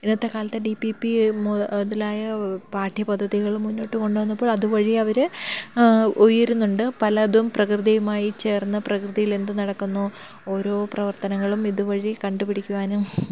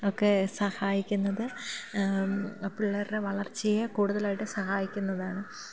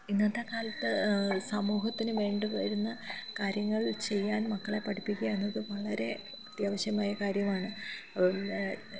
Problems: background sounds at intervals, low volume